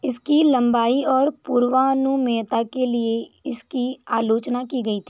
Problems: background sounds at intervals